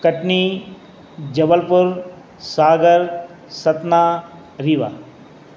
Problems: constant background noise